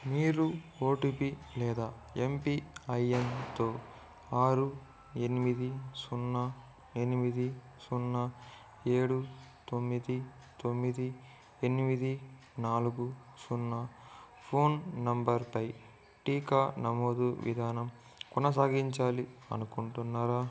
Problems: background sounds at intervals, low volume